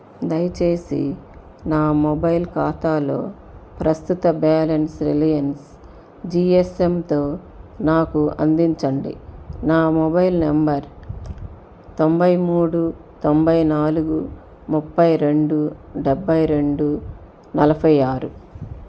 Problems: constant background noise